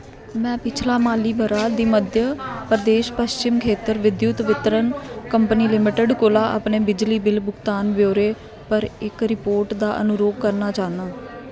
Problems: constant background noise